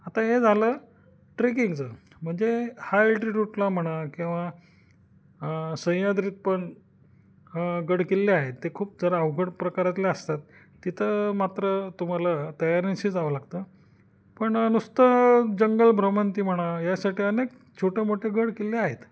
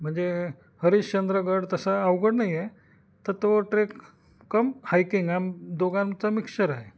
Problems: none marked